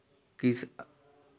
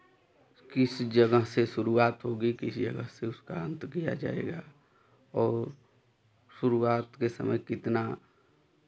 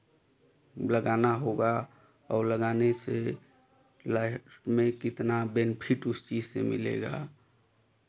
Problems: constant background noise